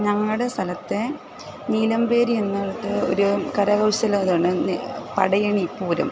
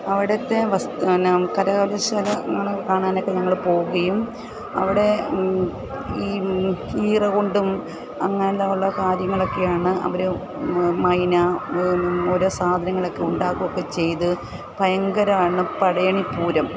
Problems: constant background noise